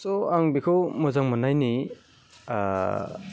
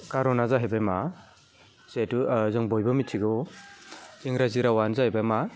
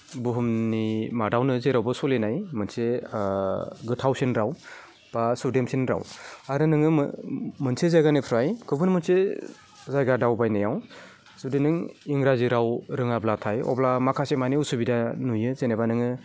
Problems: none marked